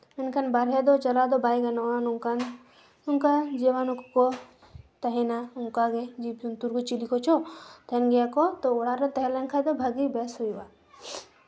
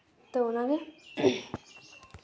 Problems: none marked